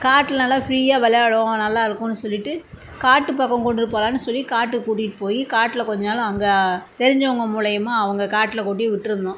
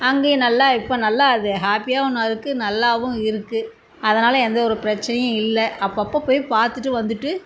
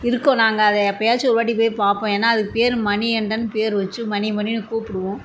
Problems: none marked